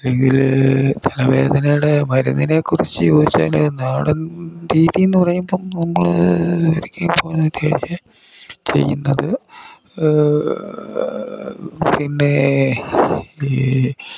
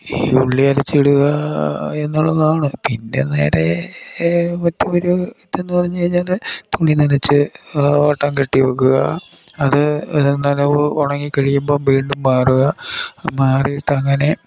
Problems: constant background noise, low volume